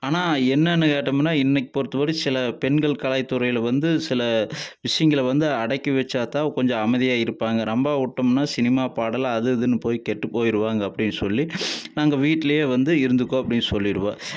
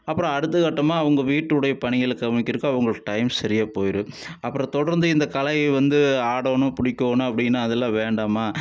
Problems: none marked